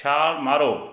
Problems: background conversations at intervals